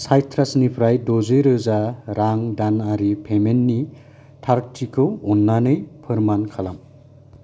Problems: none marked